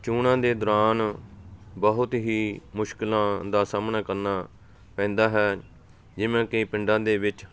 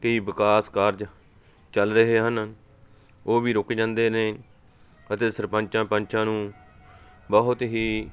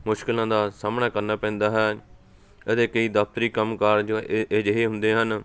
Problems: none marked